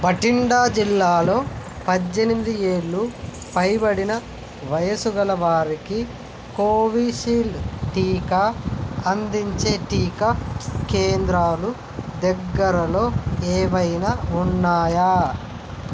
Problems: constant background noise